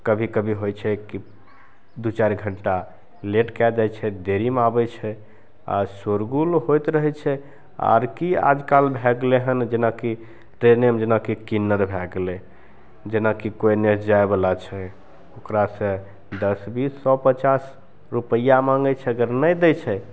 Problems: none marked